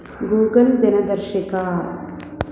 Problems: constant background noise